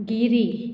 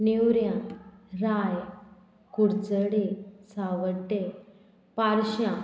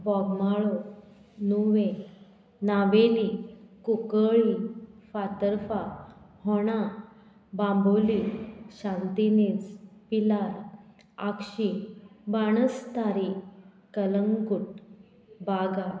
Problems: none marked